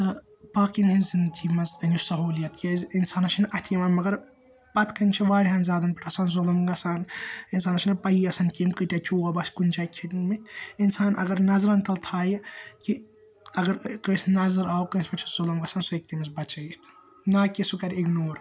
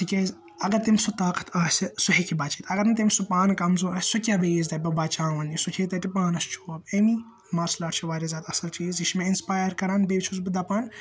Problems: constant background noise